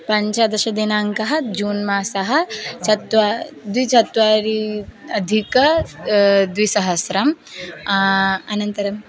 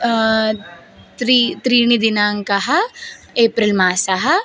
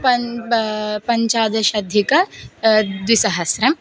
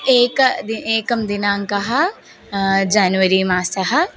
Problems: none marked